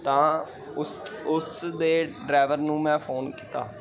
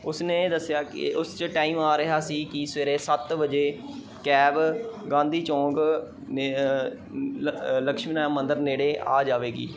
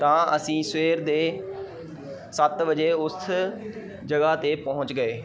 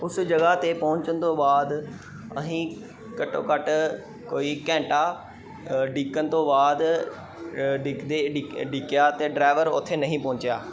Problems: none marked